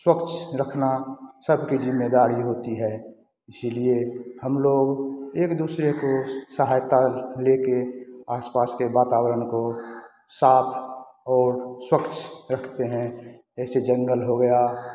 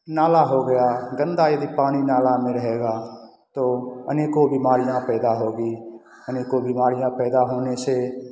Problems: constant background noise